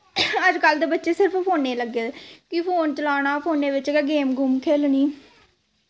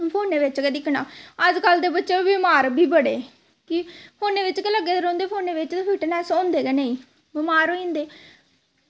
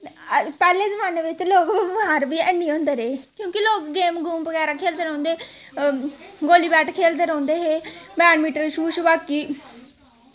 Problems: constant background noise, background conversations at intervals